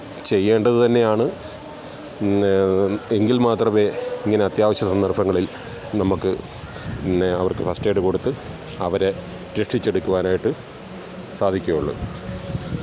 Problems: constant background noise